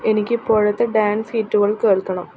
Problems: background sounds at intervals